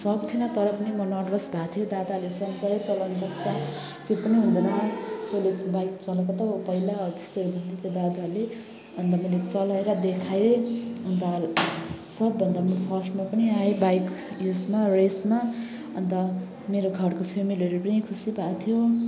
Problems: background sounds at intervals, continuous background conversations